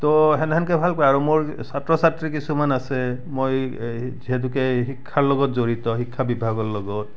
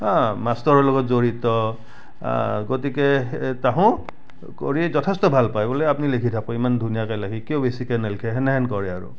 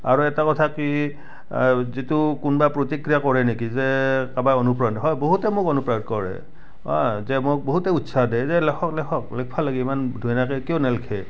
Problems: background sounds at intervals, background conversations at intervals